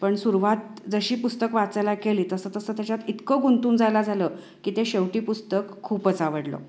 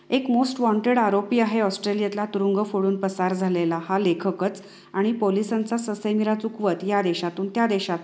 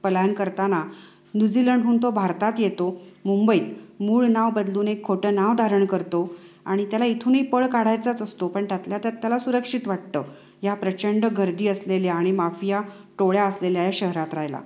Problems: constant background noise, echo